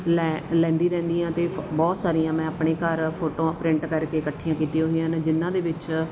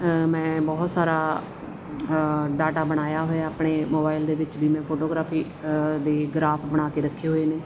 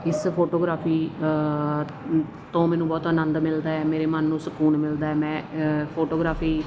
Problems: none marked